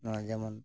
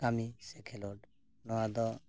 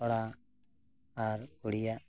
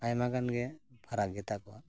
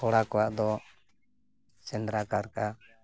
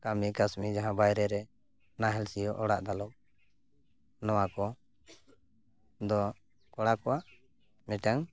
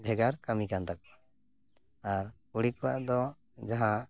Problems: none marked